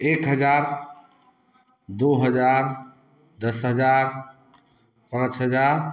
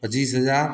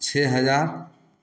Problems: none marked